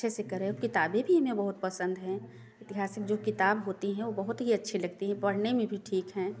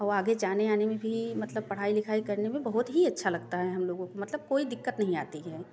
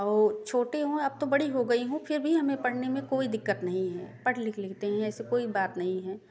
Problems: constant background noise